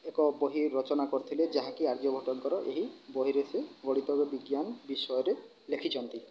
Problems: low volume